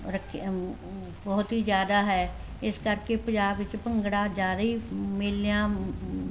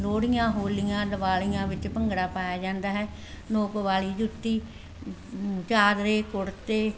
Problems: none marked